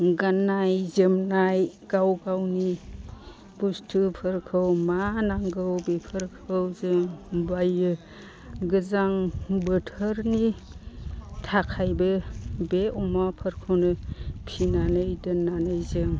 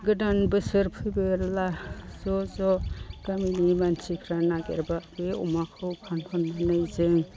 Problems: constant background noise